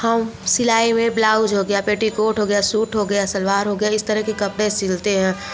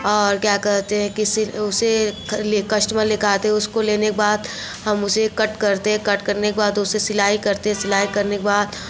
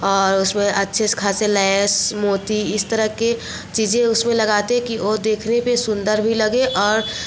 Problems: none marked